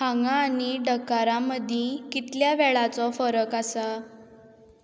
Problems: none marked